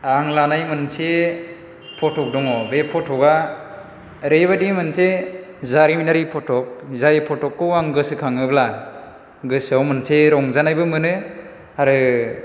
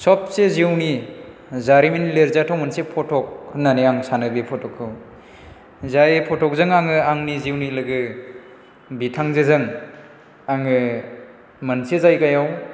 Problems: none marked